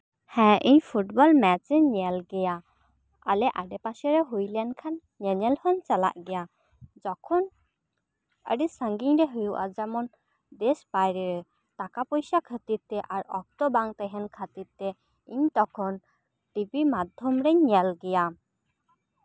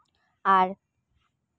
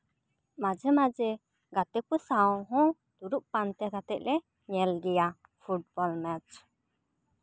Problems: none marked